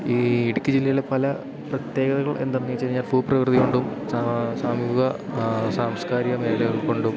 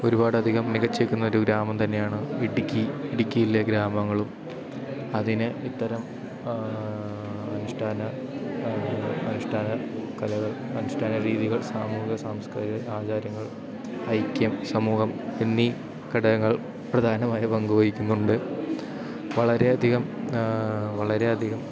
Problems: constant background noise